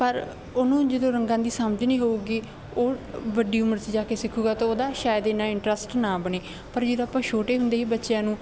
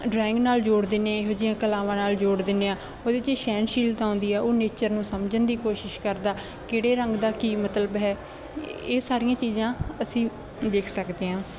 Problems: constant background noise